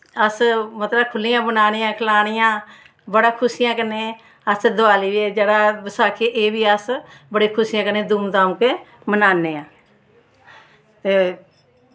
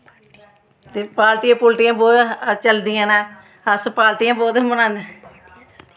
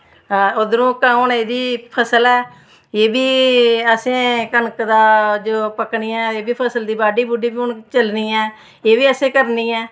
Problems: background sounds at intervals